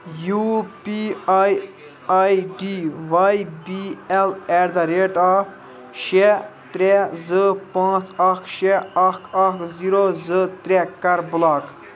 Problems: continuous background conversations